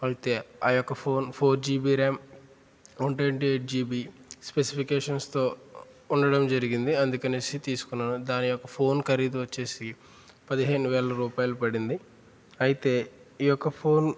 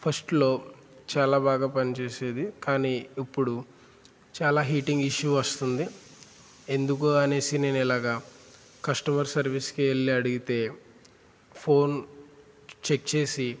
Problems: constant background noise